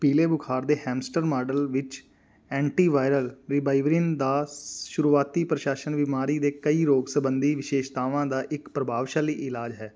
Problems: none marked